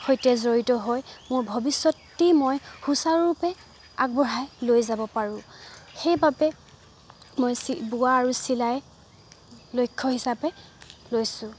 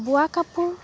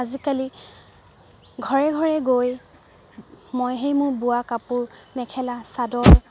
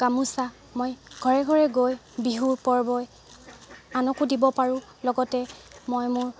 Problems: none marked